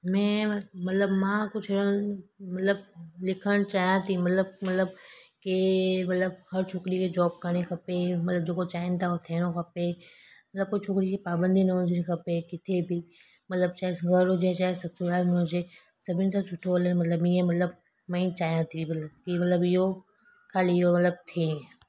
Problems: constant background noise